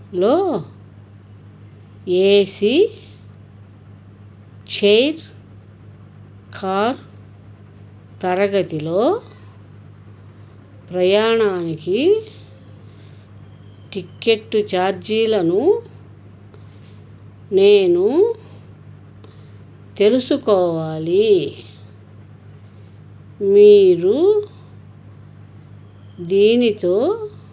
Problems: background conversations at intervals